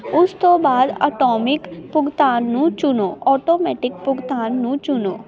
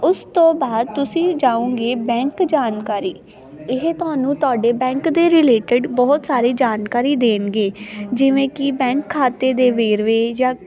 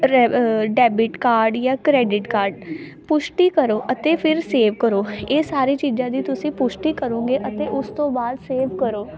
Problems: constant background noise, continuous background conversations